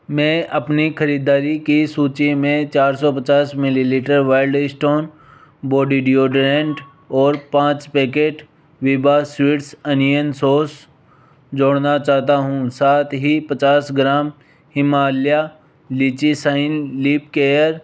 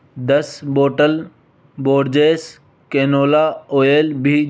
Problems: background sounds at intervals